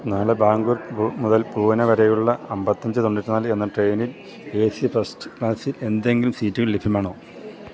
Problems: background sounds at intervals